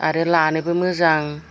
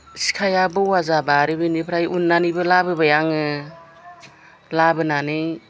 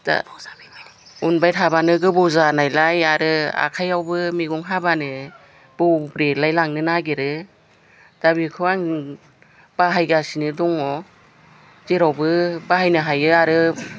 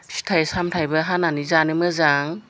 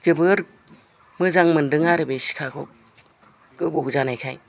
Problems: background conversations at intervals